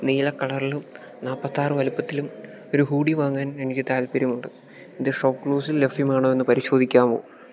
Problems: none marked